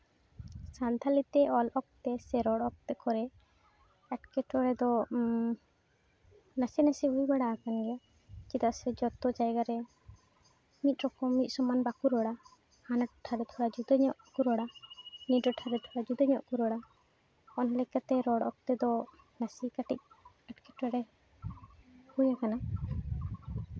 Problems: none marked